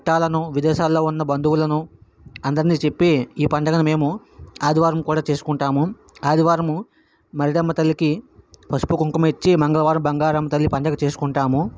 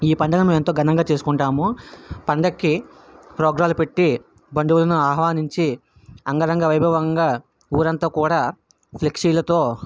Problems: background sounds at intervals